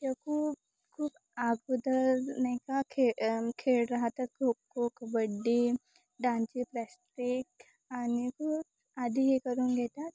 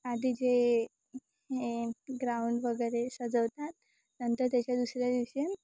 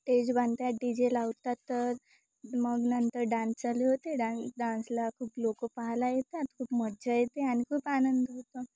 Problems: constant background noise